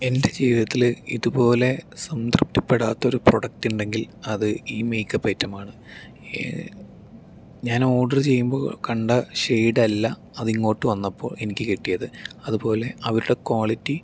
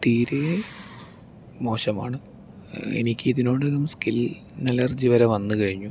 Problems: low volume